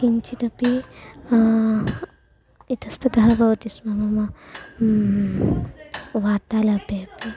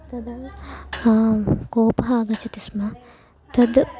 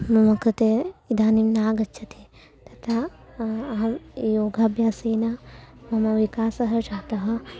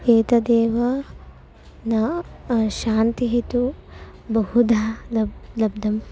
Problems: background sounds at intervals